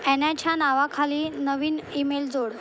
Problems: constant background noise